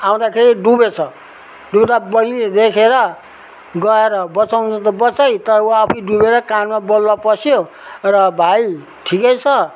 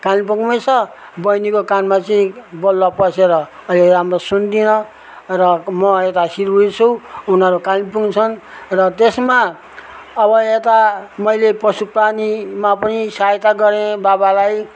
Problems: background sounds at intervals